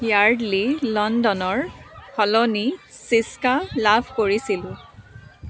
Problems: constant background noise, continuous background conversations